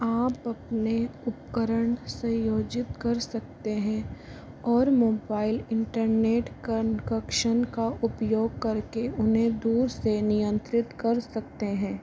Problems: constant background noise